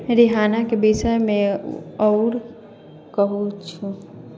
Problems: background conversations at intervals